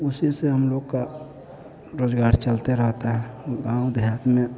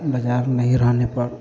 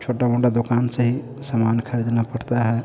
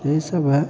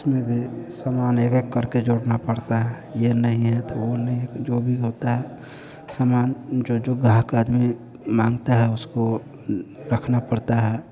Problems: constant background noise